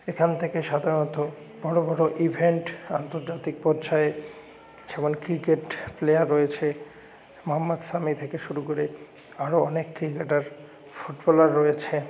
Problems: none marked